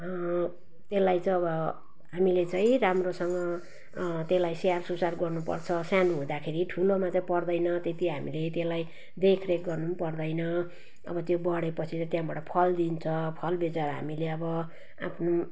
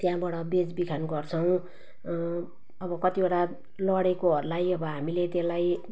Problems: background sounds at intervals